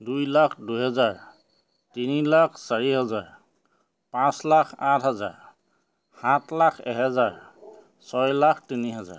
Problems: none marked